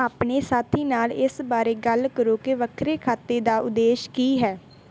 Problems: background sounds at intervals